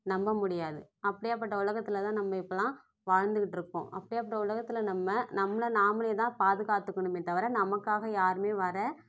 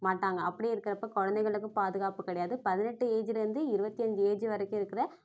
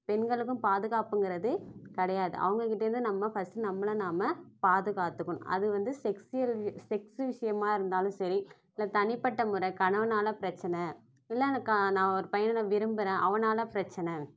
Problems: none marked